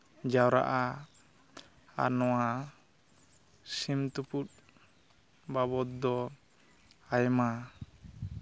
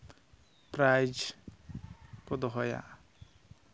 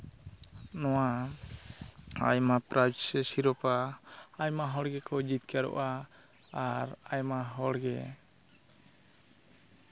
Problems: none marked